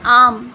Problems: constant background noise